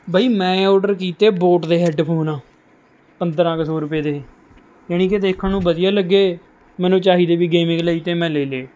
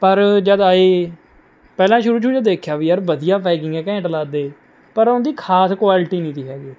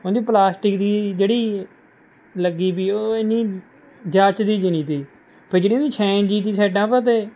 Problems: none marked